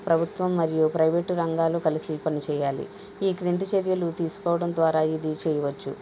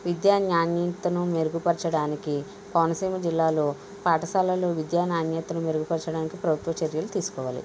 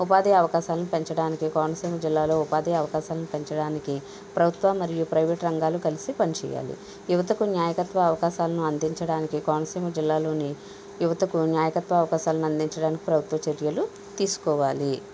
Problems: constant background noise